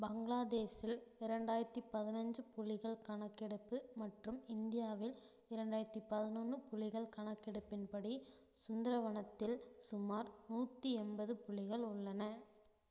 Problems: low volume